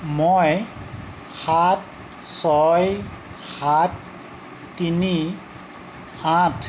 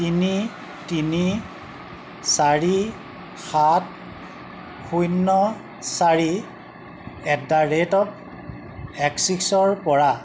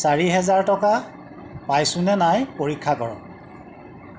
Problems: constant background noise